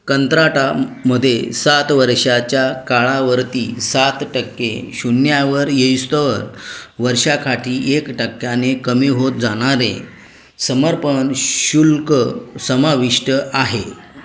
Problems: background sounds at intervals, background conversations at intervals